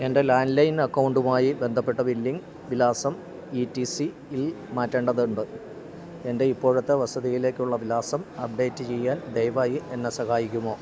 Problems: low volume